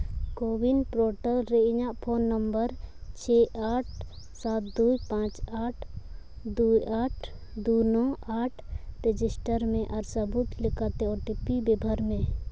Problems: none marked